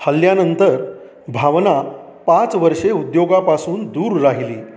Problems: background sounds at intervals